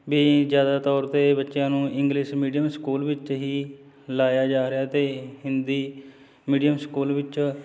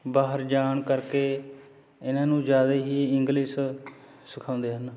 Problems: none marked